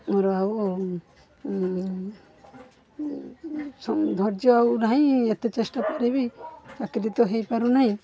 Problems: constant background noise